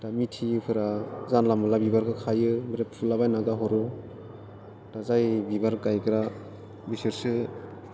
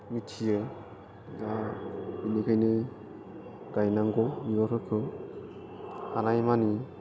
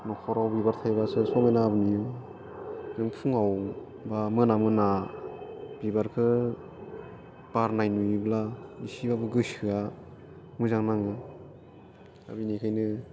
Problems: none marked